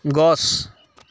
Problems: constant background noise